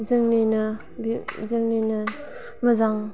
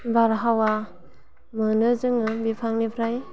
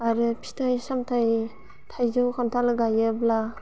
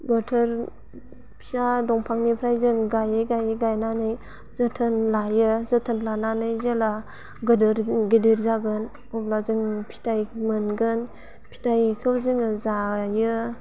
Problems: constant background noise